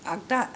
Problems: low volume